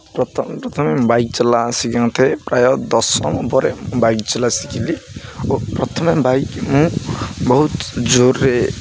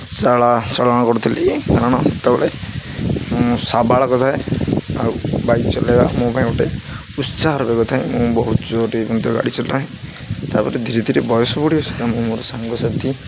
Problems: constant background noise